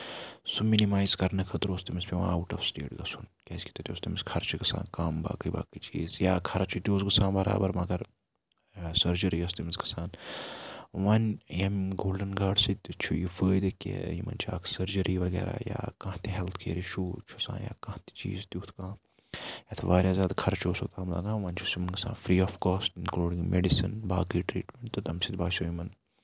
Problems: background sounds at intervals, low volume